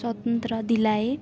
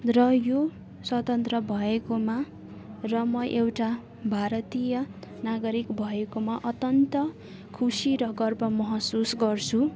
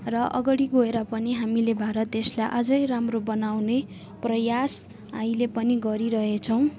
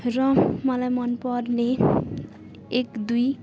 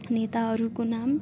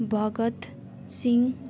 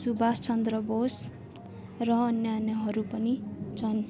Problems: constant background noise